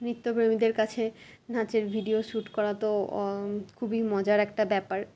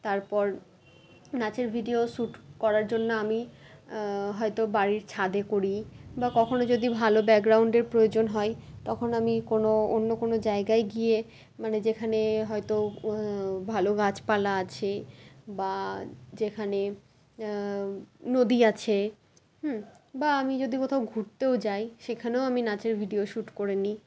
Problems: constant background noise, continuous background conversations